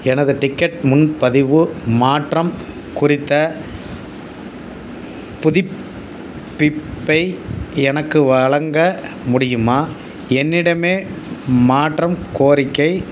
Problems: constant background noise